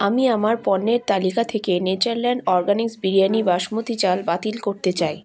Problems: none marked